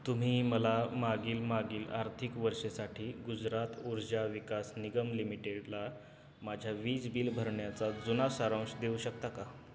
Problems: none marked